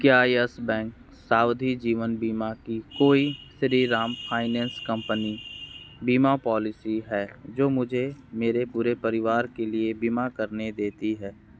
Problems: background sounds at intervals